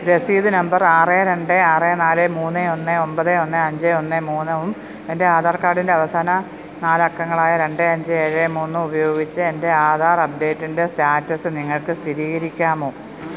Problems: none marked